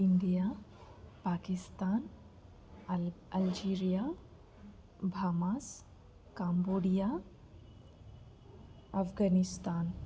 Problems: background sounds at intervals, low volume